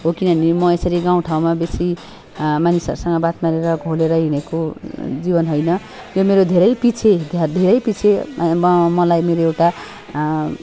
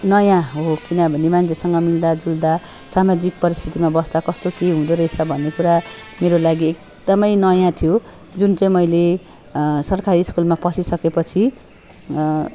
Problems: constant background noise, background conversations at intervals